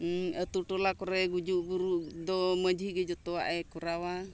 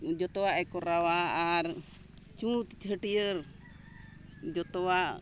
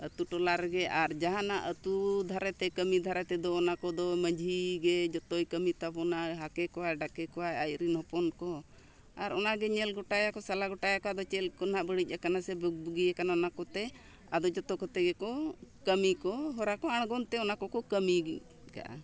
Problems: none marked